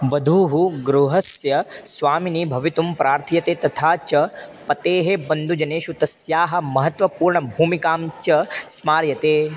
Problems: constant background noise